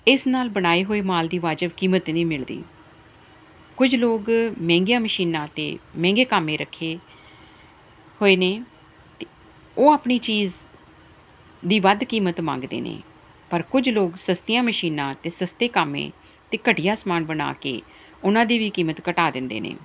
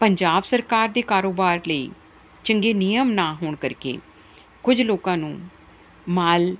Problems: none marked